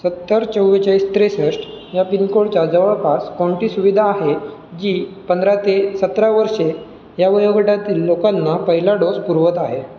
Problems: none marked